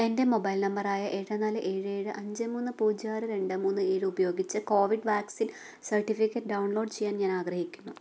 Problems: low volume